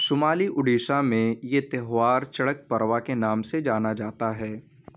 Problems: background sounds at intervals